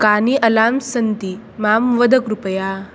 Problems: none marked